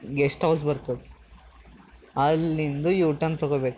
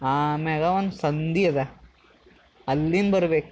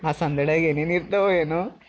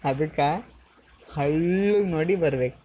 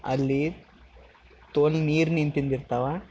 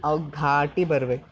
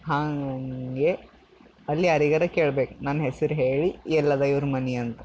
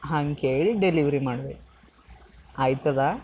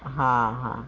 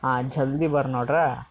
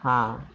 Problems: background sounds at intervals